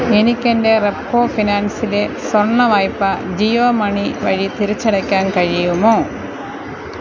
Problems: none marked